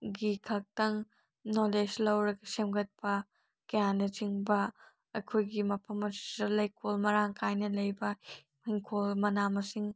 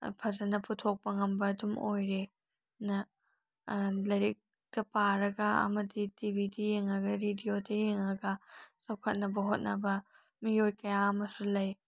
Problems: none marked